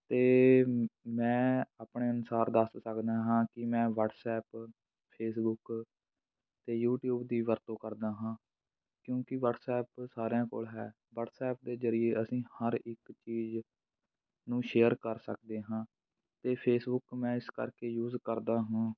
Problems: background sounds at intervals